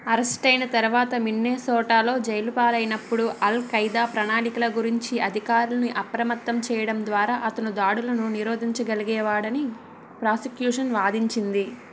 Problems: background sounds at intervals